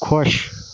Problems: constant background noise